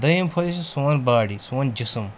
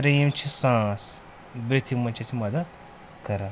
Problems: none marked